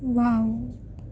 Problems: low volume